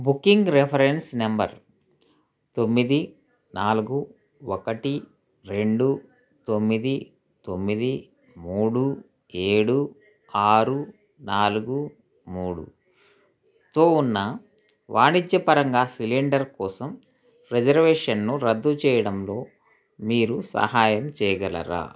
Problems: constant background noise